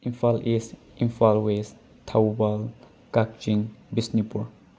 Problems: constant background noise